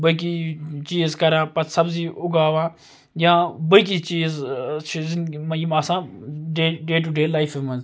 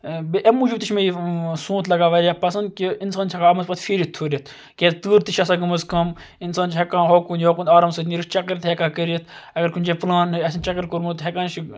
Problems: none marked